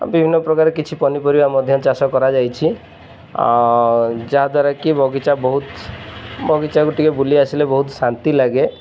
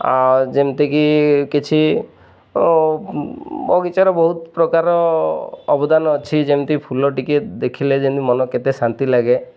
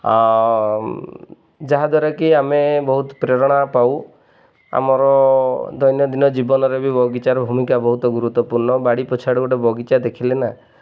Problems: none marked